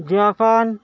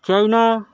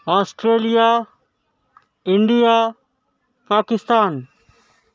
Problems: none marked